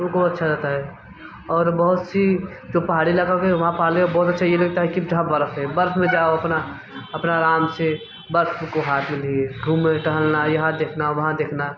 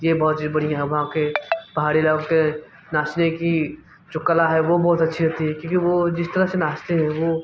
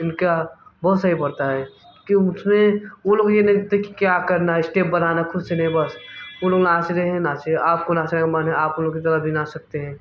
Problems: constant background noise